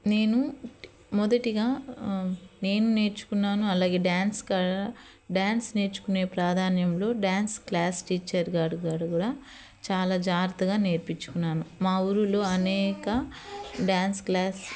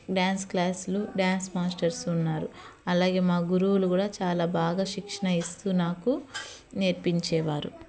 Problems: constant background noise